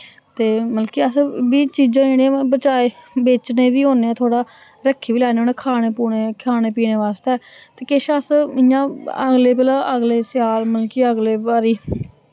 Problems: none marked